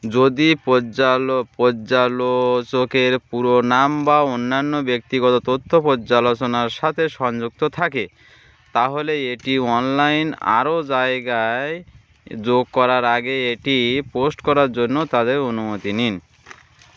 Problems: constant background noise